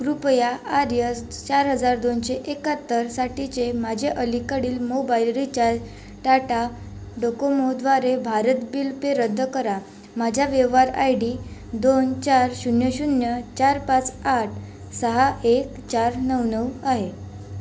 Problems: constant background noise